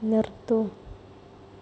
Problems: none marked